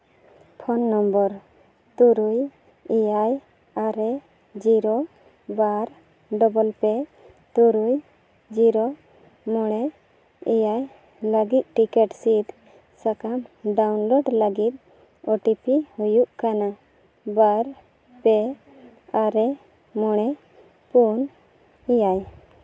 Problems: background conversations at intervals